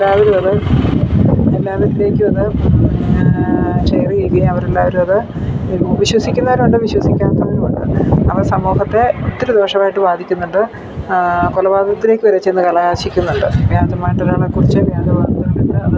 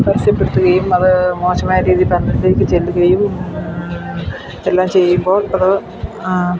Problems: constant background noise